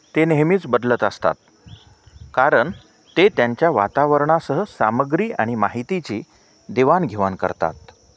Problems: none marked